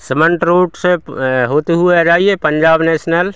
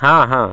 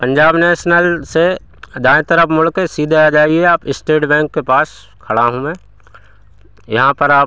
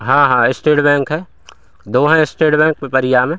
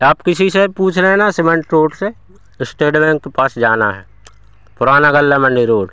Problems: constant background noise, continuous background conversations